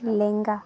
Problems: continuous background conversations